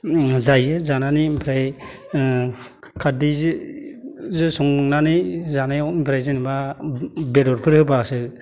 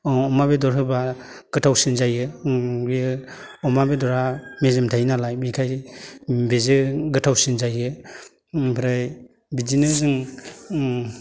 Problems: none marked